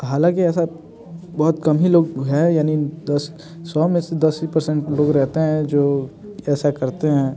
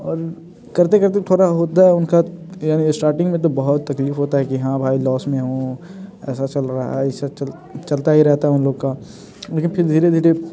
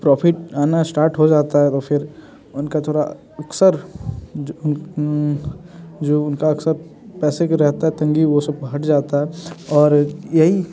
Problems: constant background noise